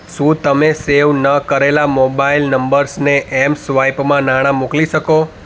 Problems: none marked